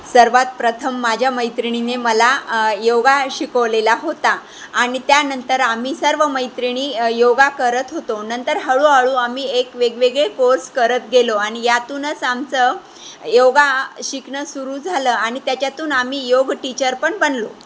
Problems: constant background noise